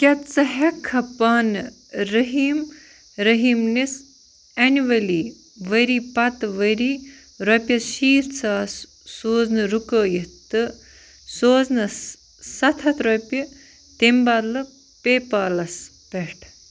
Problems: constant background noise